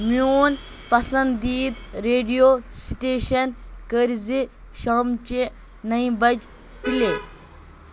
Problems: constant background noise